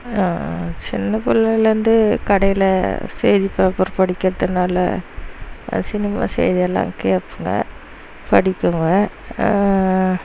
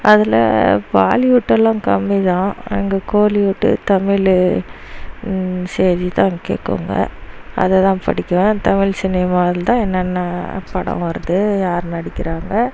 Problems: constant background noise